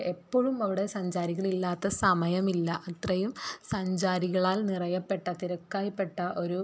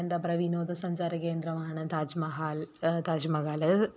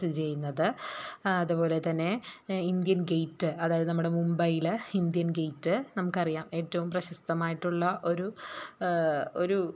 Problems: low volume